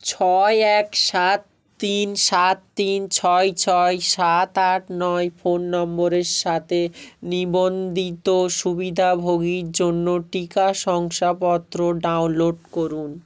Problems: none marked